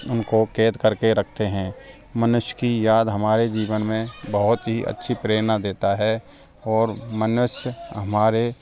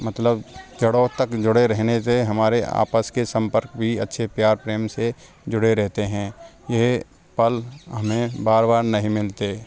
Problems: background sounds at intervals, background conversations at intervals